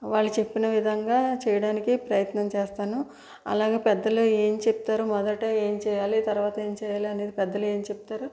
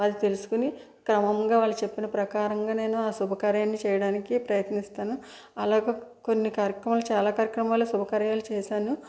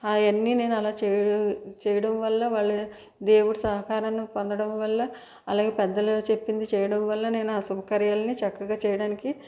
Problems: background sounds at intervals